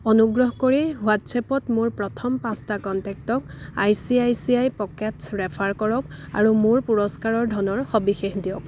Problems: background sounds at intervals